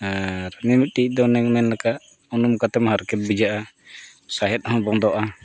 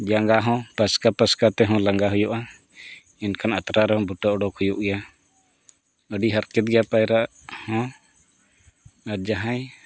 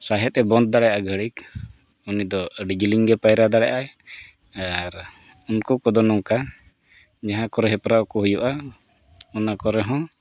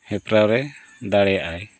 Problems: background sounds at intervals